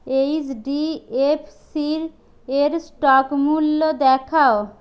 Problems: none marked